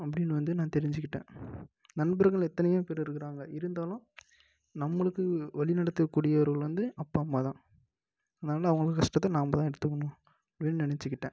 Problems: low volume